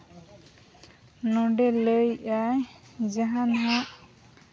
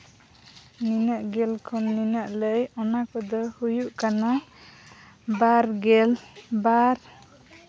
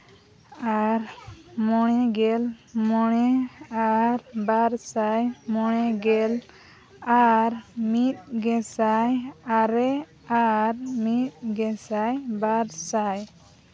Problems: none marked